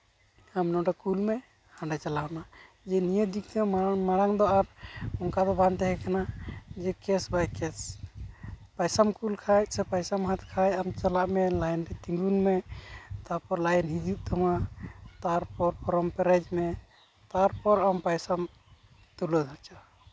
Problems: constant background noise